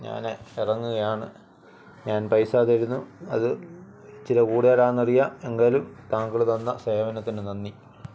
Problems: none marked